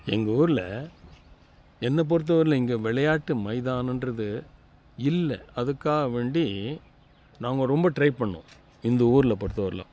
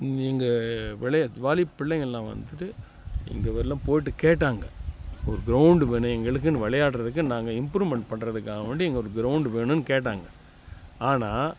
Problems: background conversations at intervals